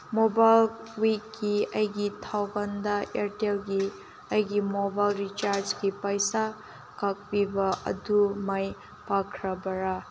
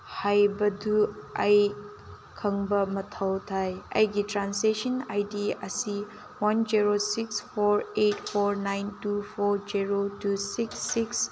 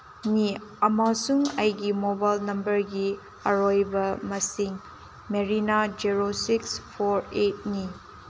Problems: constant background noise